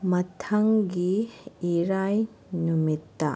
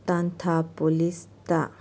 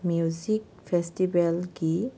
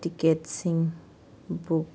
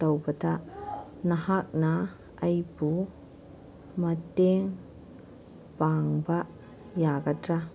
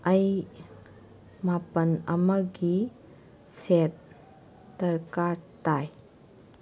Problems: none marked